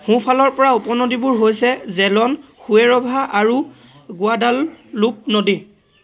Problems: constant background noise, continuous background conversations